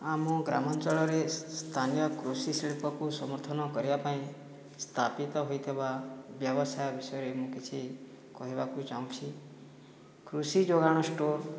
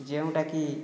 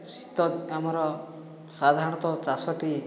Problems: background sounds at intervals, background conversations at intervals